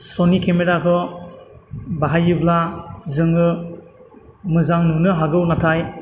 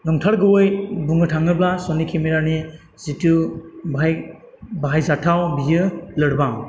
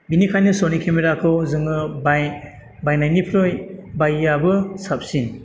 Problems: none marked